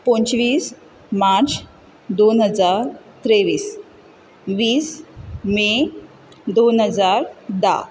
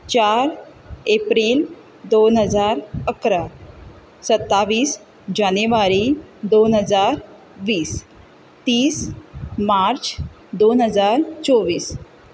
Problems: background sounds at intervals